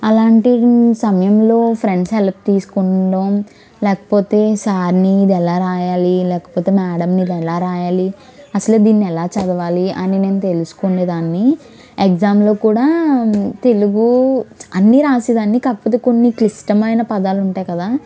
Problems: background conversations at intervals